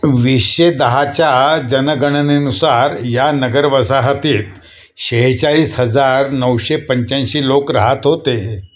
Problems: constant background noise, echo